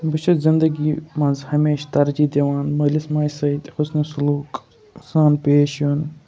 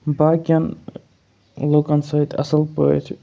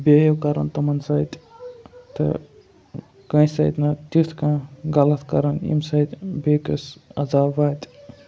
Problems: none marked